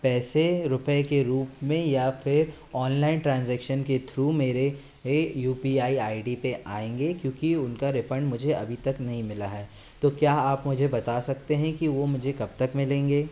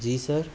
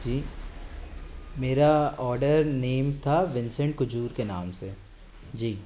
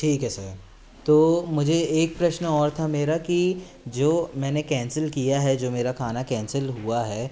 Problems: background sounds at intervals